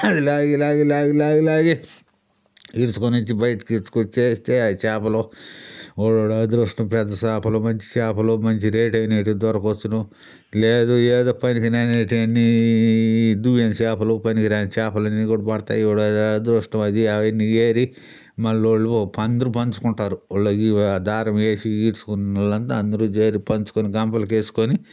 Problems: background sounds at intervals